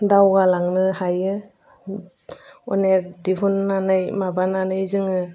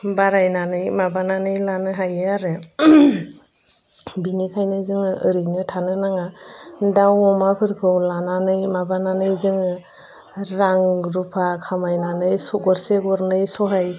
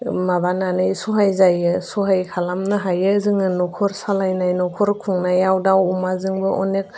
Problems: constant background noise